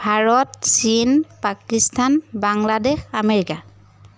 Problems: none marked